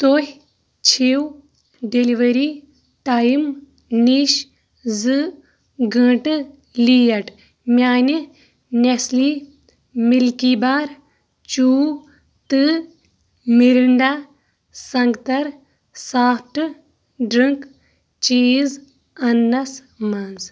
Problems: none marked